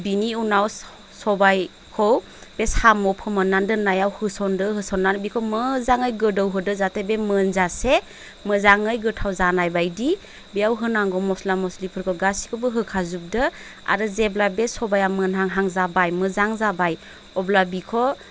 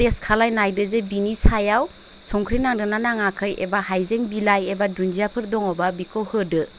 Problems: constant background noise